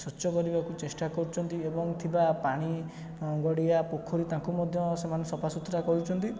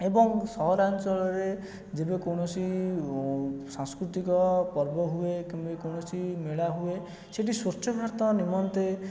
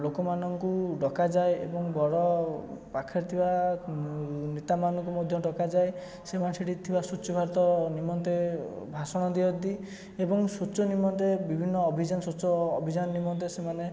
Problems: constant background noise, continuous background conversations